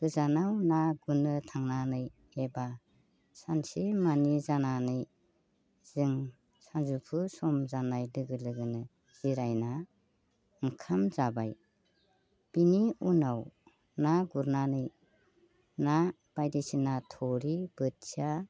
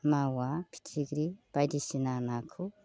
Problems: constant background noise